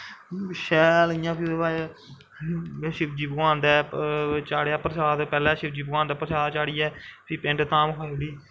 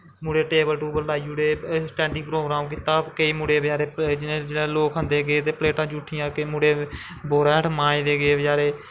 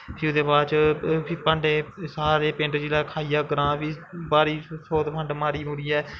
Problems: constant background noise